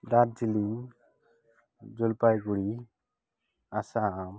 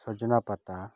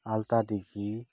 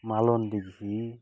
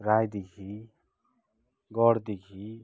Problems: none marked